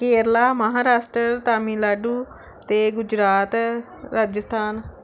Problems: none marked